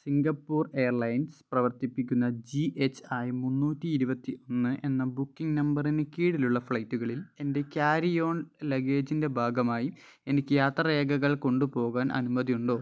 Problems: none marked